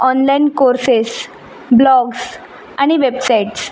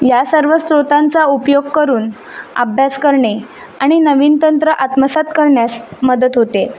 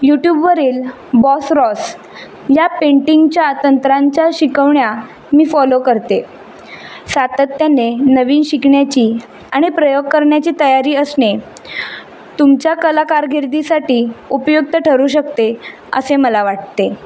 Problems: none marked